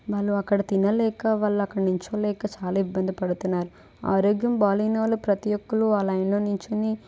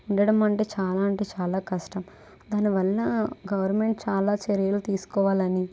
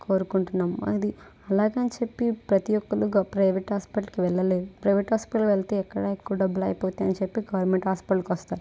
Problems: none marked